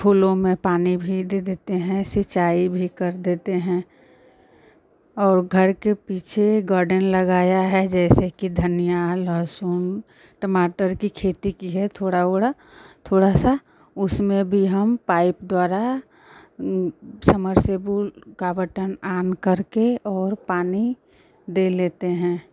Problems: constant background noise